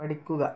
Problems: low volume